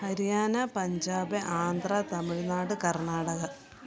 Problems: continuous background conversations